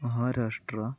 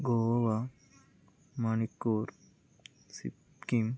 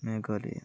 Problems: low volume